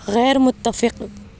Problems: constant background noise